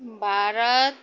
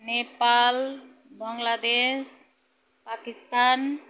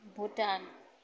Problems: none marked